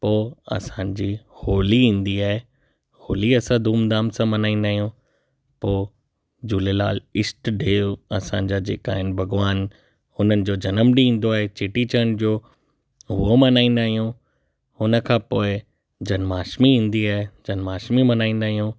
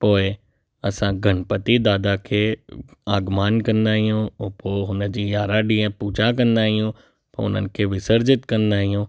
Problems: none marked